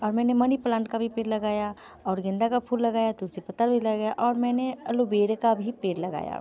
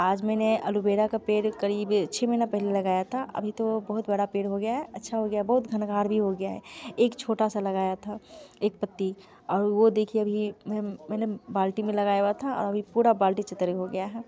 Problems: background sounds at intervals, continuous background conversations